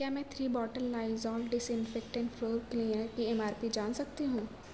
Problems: constant background noise